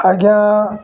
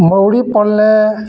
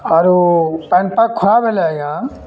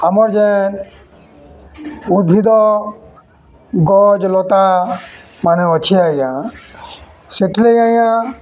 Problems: constant background noise, continuous background conversations